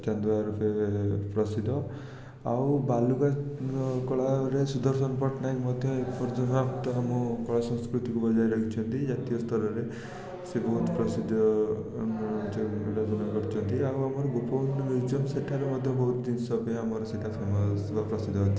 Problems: constant background noise